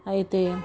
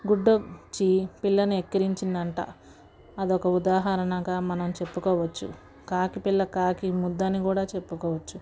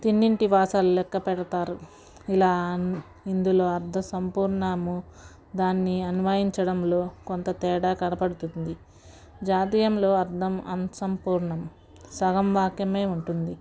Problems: background sounds at intervals, background conversations at intervals